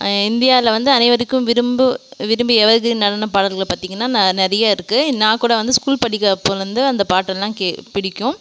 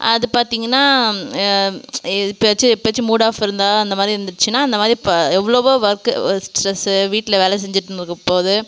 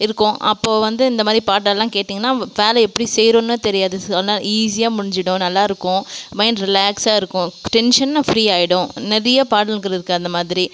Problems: none marked